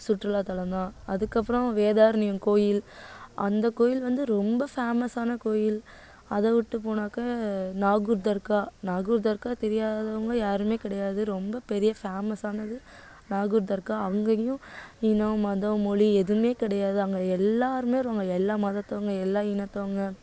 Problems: none marked